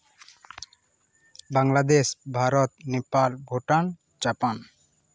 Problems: none marked